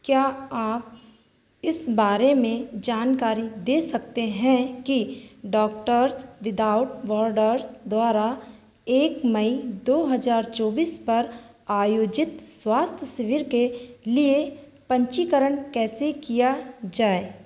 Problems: background sounds at intervals, echo